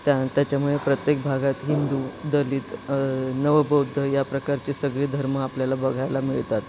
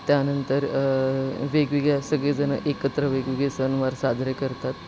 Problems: constant background noise, background conversations at intervals